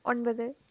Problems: none marked